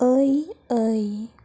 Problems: low volume